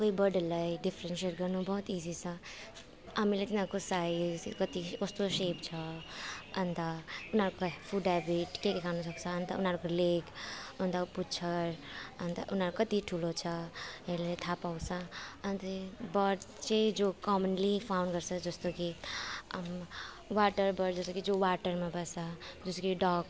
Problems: none marked